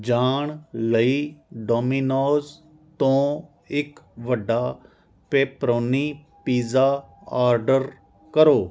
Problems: none marked